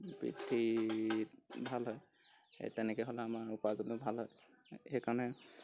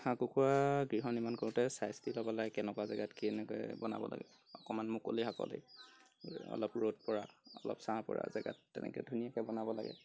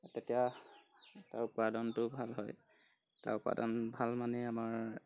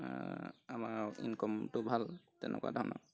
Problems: background conversations at intervals